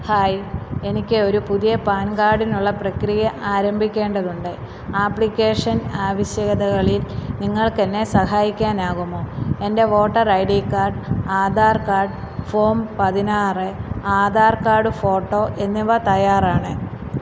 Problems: background sounds at intervals